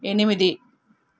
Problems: none marked